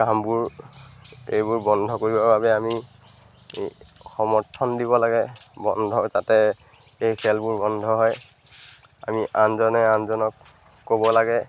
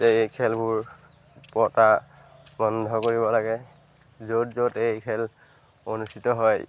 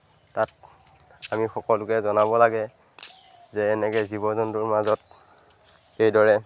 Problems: background sounds at intervals